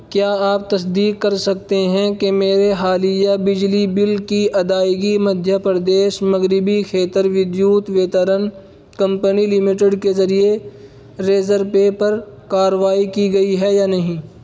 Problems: none marked